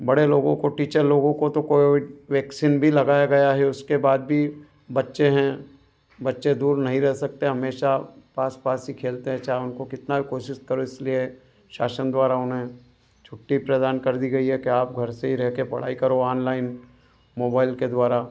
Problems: none marked